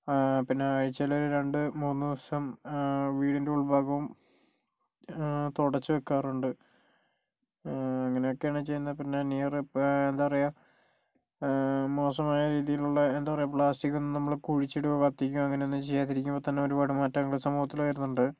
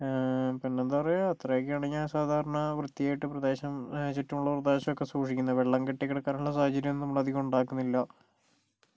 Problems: low volume